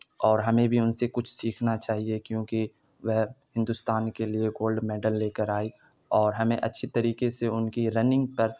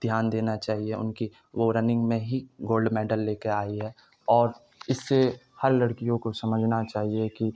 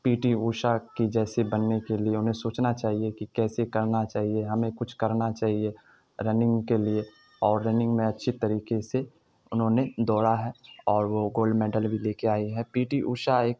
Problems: none marked